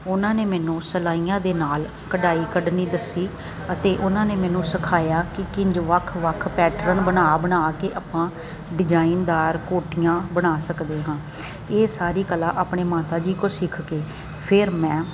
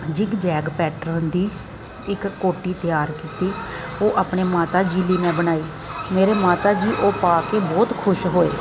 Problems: constant background noise